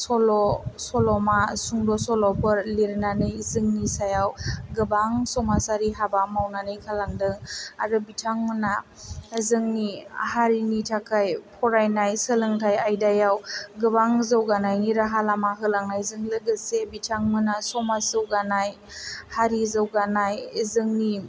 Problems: low volume